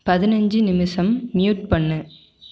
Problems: none marked